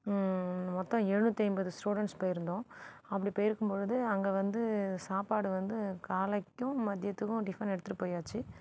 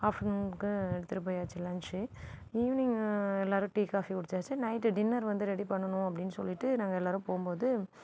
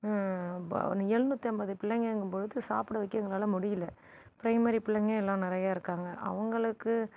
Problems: background sounds at intervals